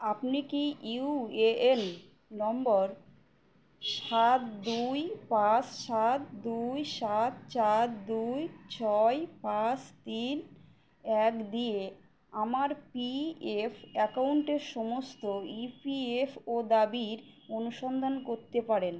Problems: background sounds at intervals